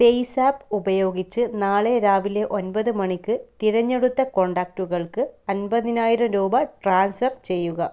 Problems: none marked